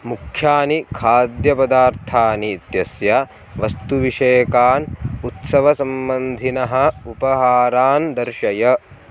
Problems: constant background noise